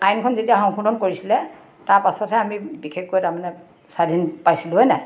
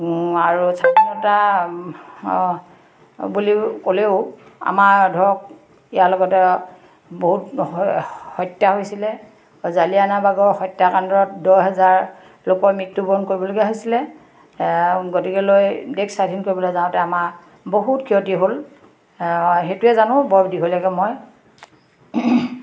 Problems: constant background noise, background conversations at intervals